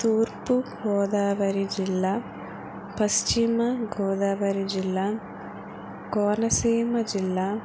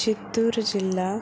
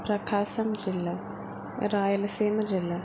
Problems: none marked